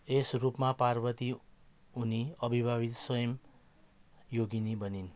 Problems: background sounds at intervals